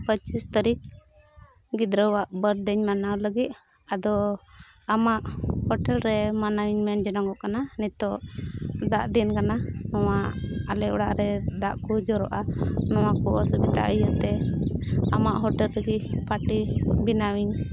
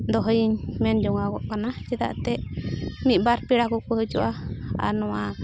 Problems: none marked